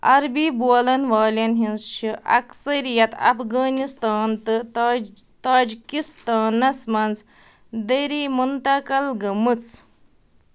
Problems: none marked